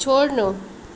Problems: background sounds at intervals